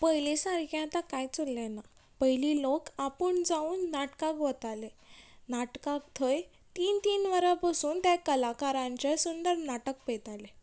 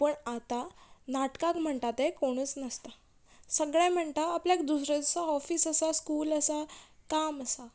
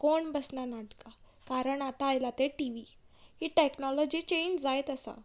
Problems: background sounds at intervals